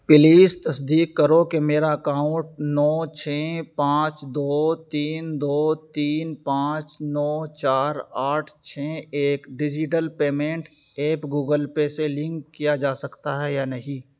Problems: none marked